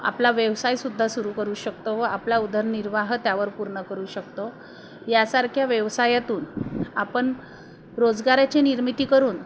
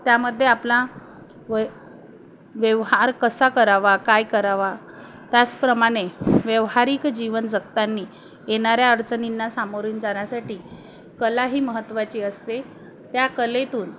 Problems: background sounds at intervals